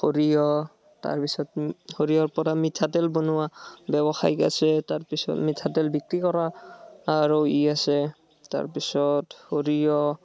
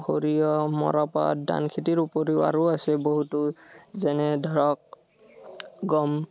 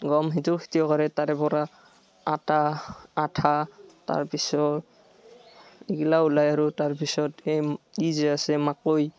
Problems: none marked